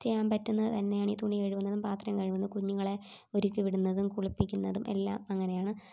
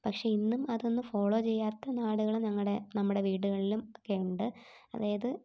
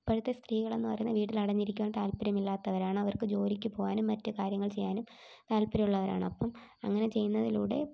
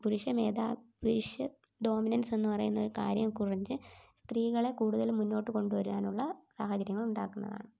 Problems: low volume